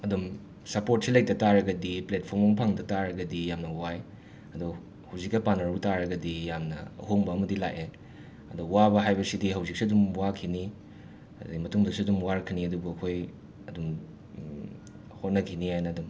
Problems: background sounds at intervals